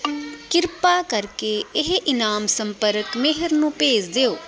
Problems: background conversations at intervals